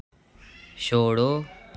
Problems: none marked